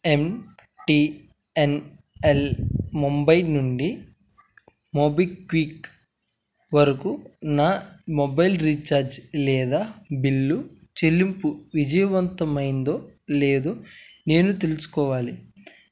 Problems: none marked